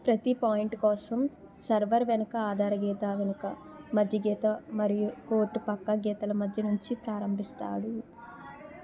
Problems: continuous background conversations